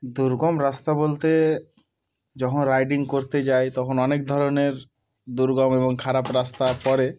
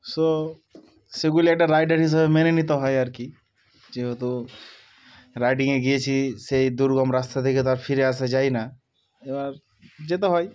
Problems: background sounds at intervals